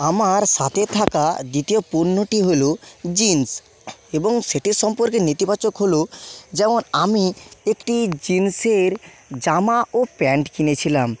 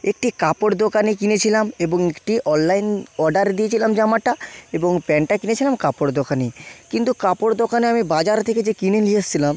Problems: constant background noise